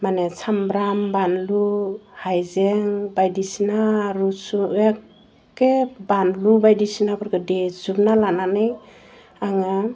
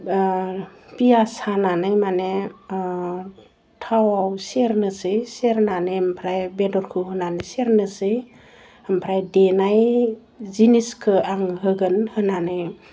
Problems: none marked